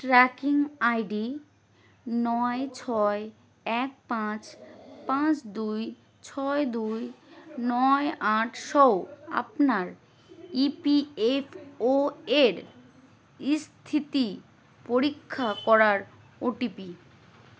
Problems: none marked